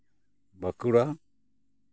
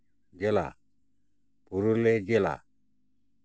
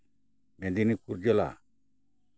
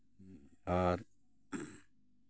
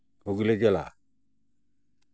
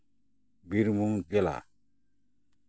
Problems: constant background noise, background conversations at intervals